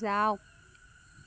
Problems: constant background noise